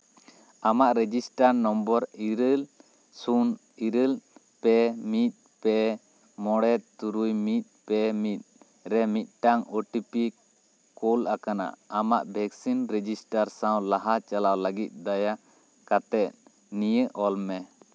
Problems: none marked